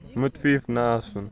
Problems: constant background noise, continuous background conversations